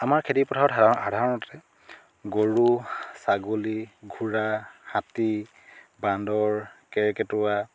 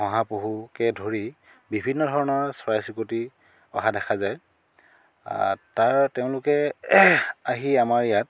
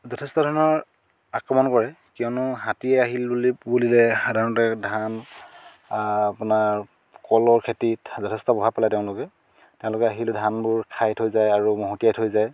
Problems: none marked